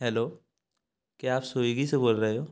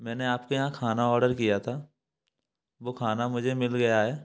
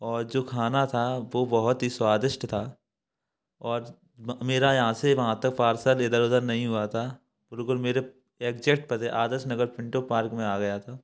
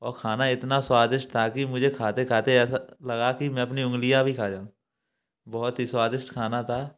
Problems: none marked